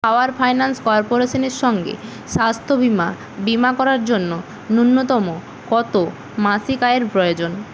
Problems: constant background noise